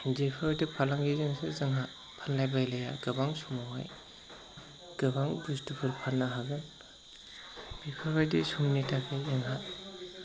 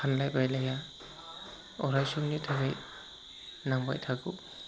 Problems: constant background noise